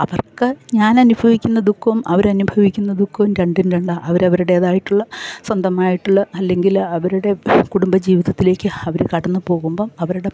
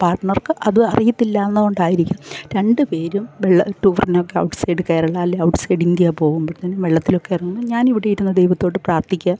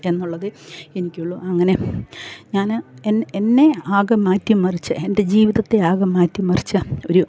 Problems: none marked